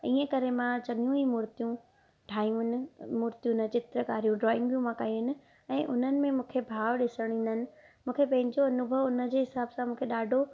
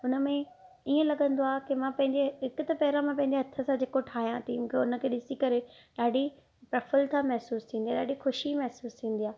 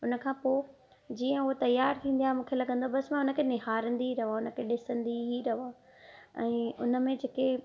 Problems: none marked